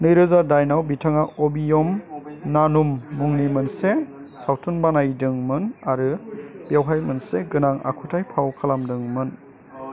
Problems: constant background noise